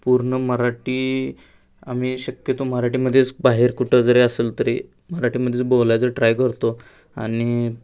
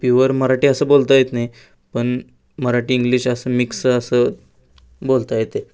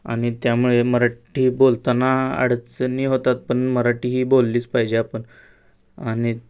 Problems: background sounds at intervals